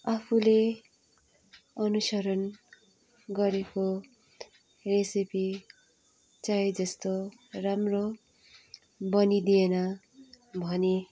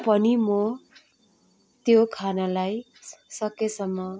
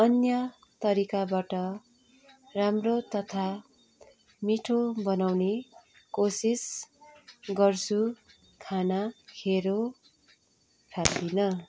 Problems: background sounds at intervals